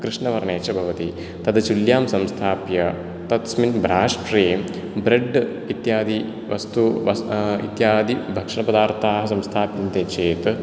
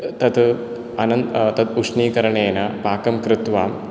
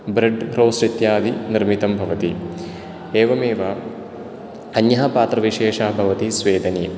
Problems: none marked